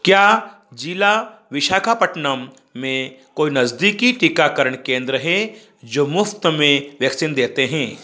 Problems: background sounds at intervals